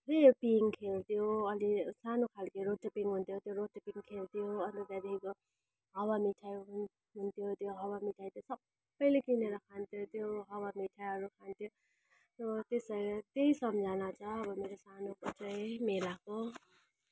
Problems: background sounds at intervals